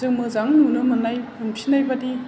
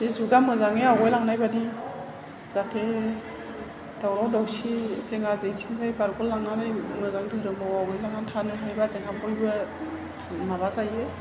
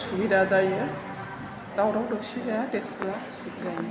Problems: low volume